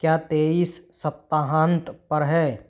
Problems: none marked